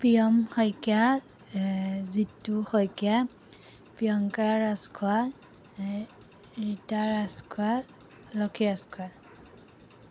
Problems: none marked